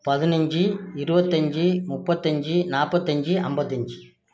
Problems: low volume